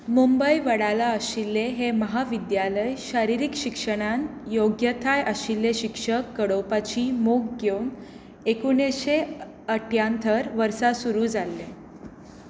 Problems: none marked